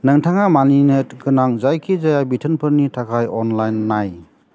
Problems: none marked